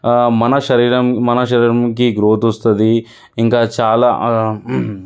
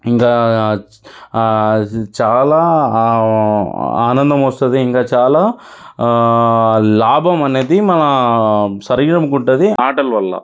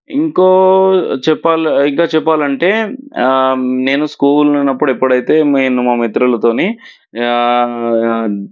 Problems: background sounds at intervals